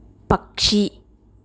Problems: none marked